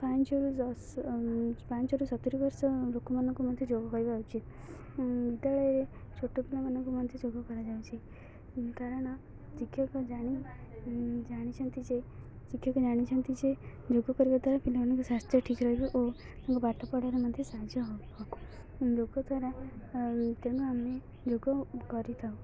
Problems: continuous background conversations, low volume